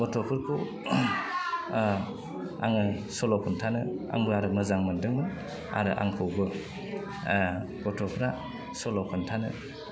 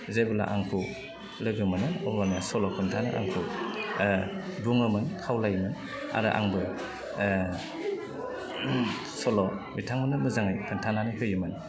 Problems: constant background noise